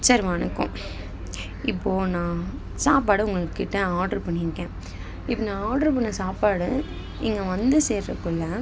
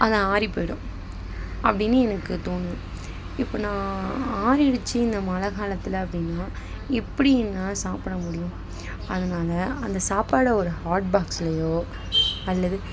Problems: constant background noise